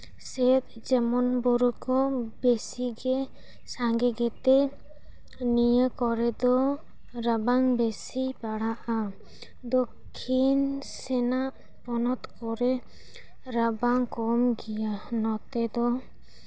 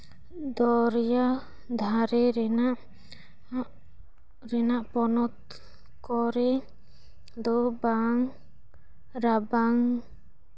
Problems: background sounds at intervals